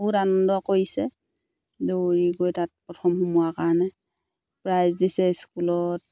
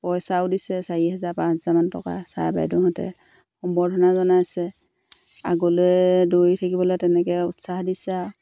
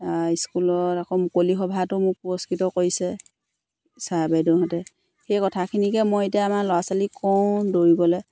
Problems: none marked